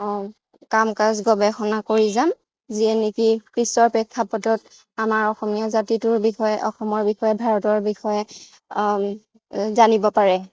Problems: none marked